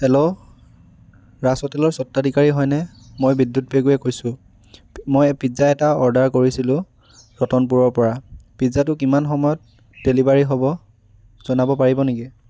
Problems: background sounds at intervals